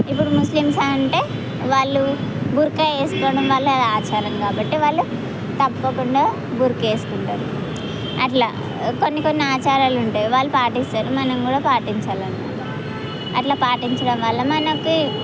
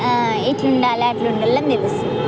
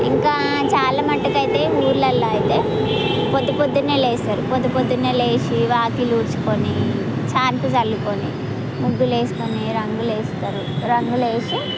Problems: none marked